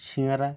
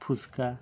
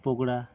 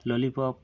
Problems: none marked